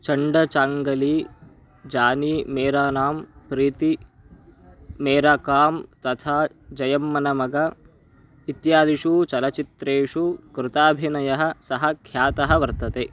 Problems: continuous background conversations